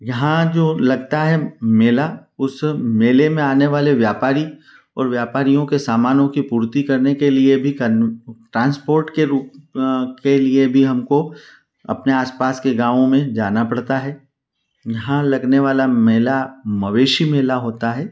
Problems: none marked